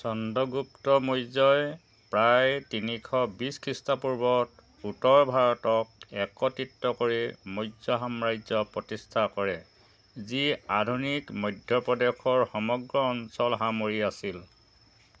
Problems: constant background noise, background conversations at intervals